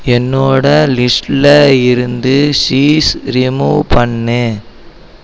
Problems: none marked